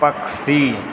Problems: constant background noise